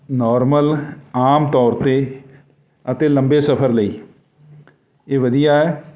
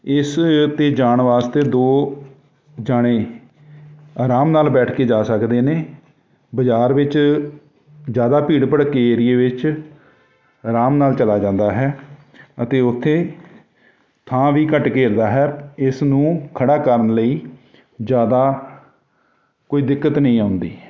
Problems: none marked